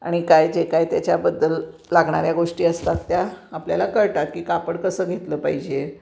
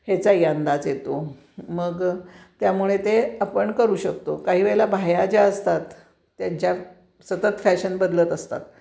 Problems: background sounds at intervals